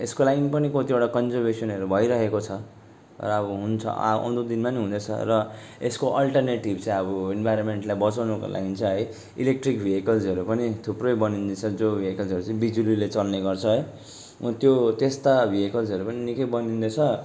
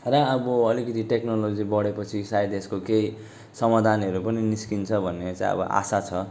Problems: constant background noise